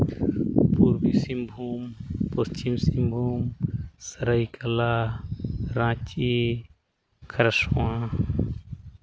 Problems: background sounds at intervals